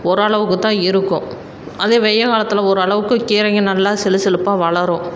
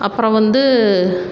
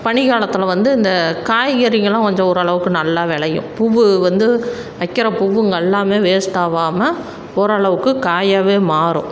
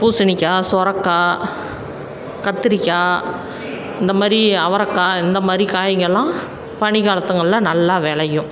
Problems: background sounds at intervals